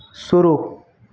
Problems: background sounds at intervals